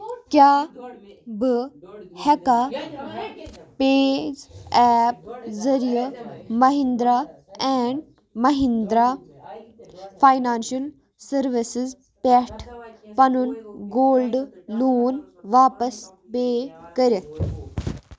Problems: background sounds at intervals, continuous background conversations